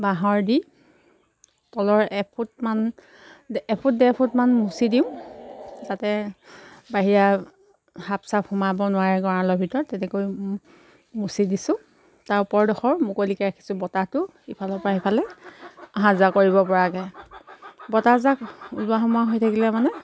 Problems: constant background noise